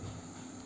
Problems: constant background noise